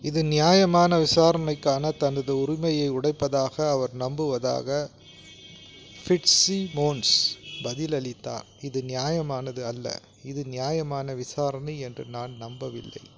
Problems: constant background noise